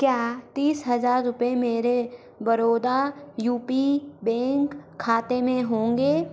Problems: none marked